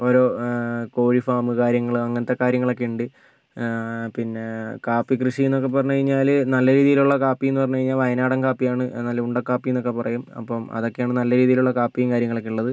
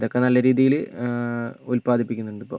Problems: background sounds at intervals